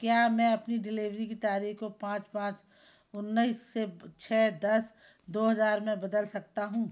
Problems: background sounds at intervals